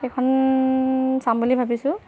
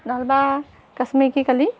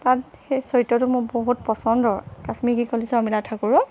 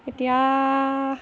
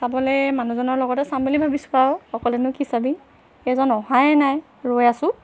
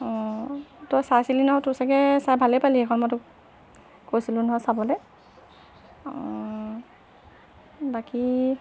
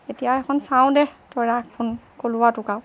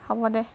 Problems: constant background noise